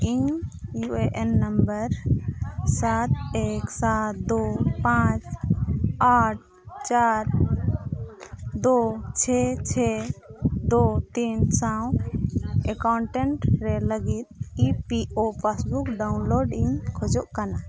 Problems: constant background noise, continuous background conversations